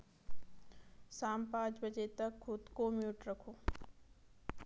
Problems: background sounds at intervals